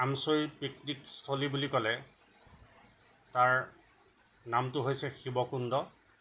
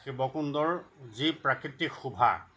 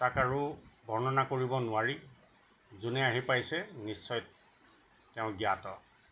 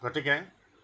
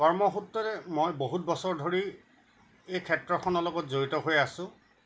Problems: none marked